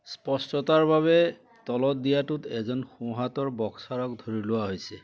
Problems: background sounds at intervals